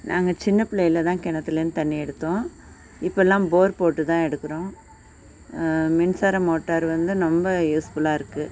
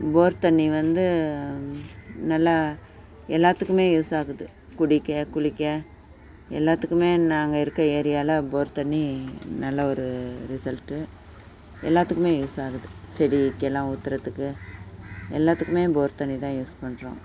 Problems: none marked